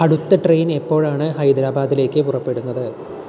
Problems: background sounds at intervals